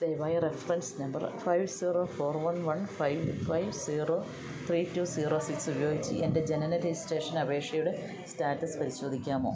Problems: continuous background conversations